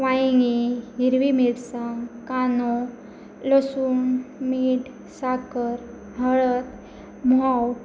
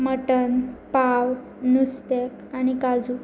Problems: none marked